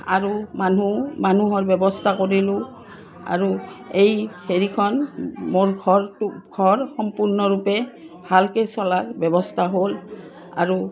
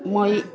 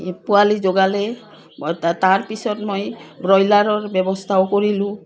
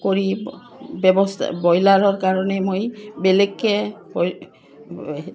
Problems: none marked